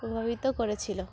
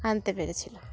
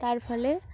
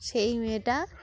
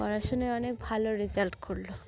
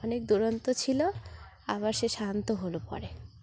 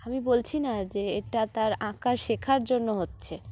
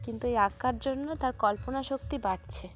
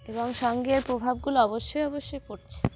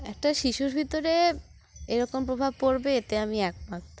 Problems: constant background noise, background conversations at intervals